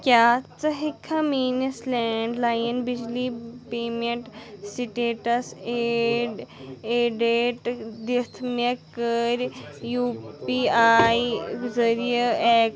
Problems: background sounds at intervals